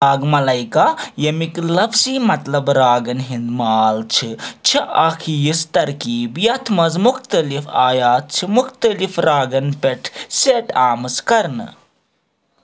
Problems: none marked